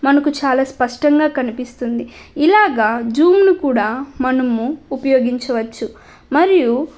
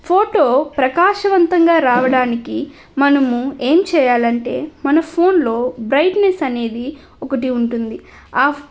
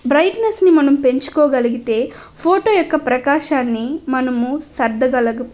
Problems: none marked